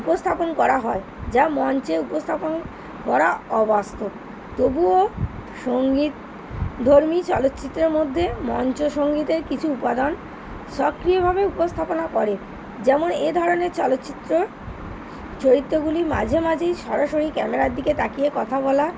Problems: none marked